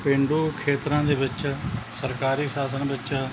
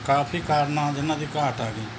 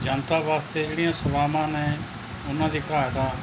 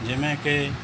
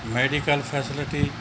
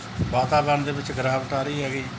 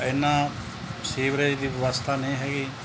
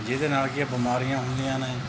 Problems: none marked